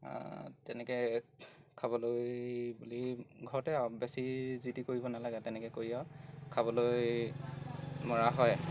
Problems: none marked